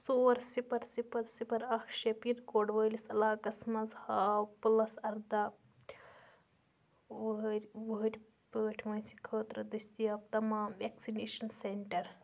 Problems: constant background noise